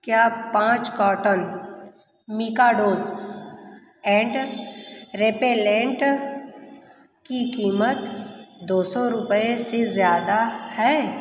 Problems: none marked